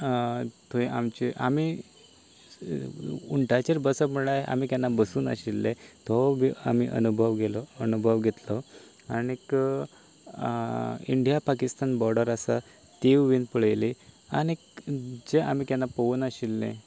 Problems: constant background noise